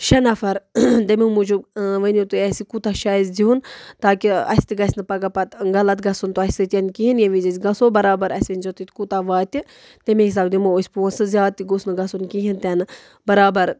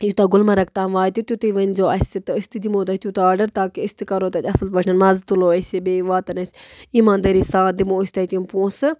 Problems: none marked